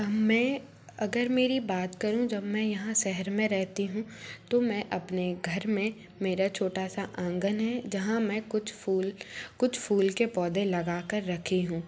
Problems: none marked